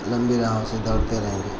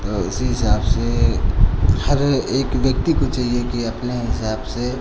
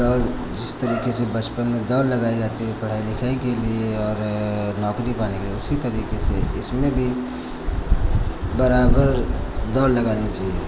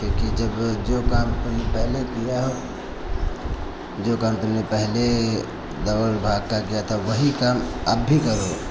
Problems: constant background noise